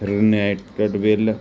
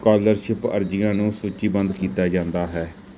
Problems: continuous background conversations